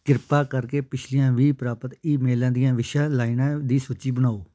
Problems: background sounds at intervals